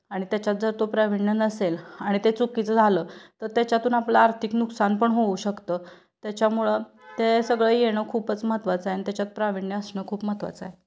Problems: none marked